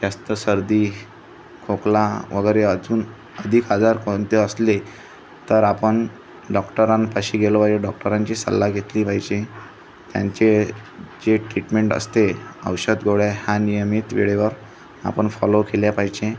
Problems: constant background noise, continuous background conversations